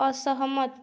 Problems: none marked